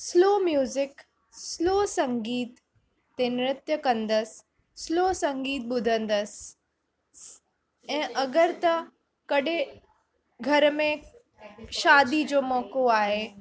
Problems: constant background noise